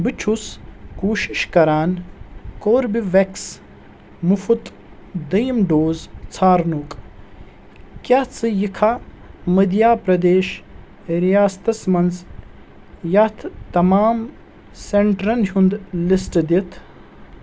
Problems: constant background noise